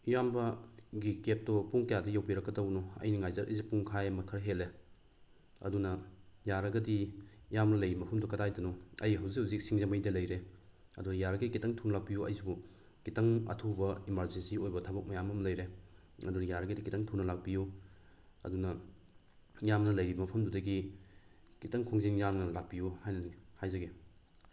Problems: constant background noise